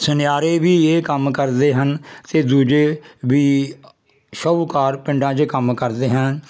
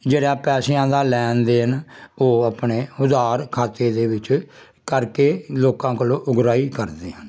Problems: constant background noise